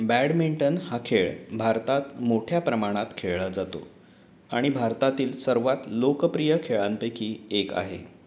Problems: none marked